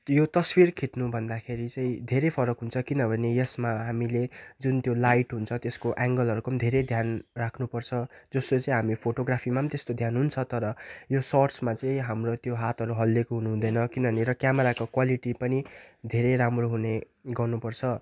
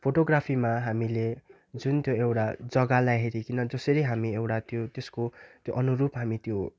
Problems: none marked